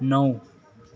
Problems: continuous background conversations